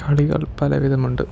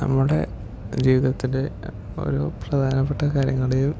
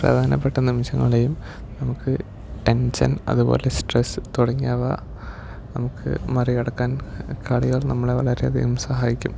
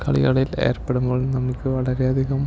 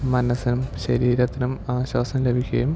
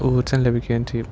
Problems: low volume